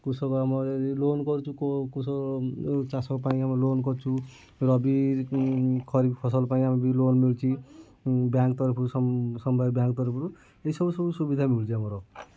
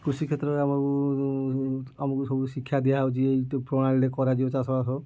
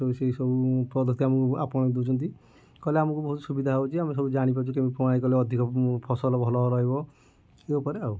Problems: low volume